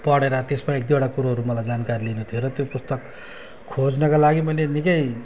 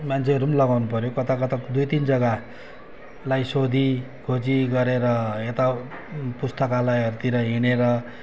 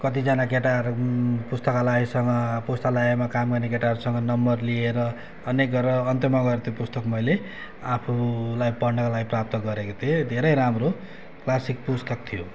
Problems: constant background noise, background conversations at intervals